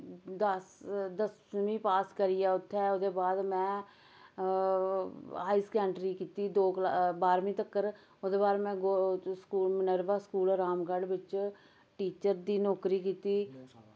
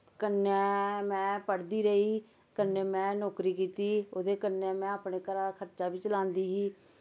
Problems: background sounds at intervals, background conversations at intervals